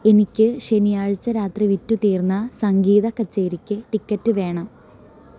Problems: constant background noise